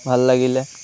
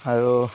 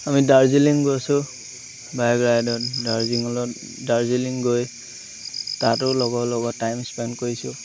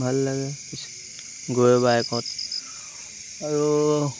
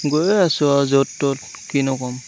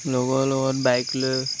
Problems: constant background noise